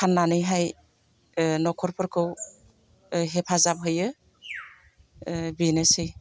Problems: constant background noise